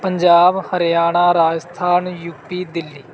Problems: none marked